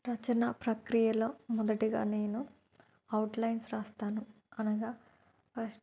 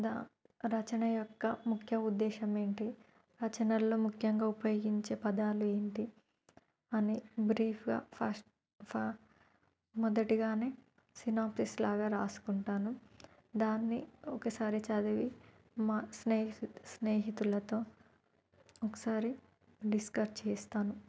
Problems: none marked